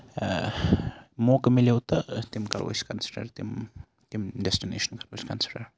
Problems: none marked